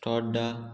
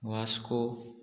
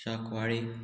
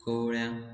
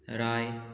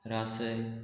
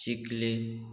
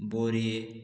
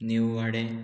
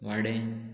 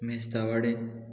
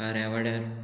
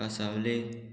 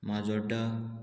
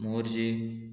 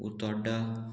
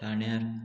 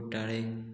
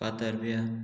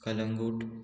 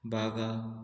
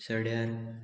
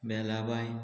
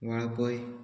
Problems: constant background noise, continuous background conversations